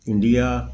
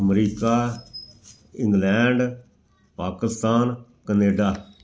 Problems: background sounds at intervals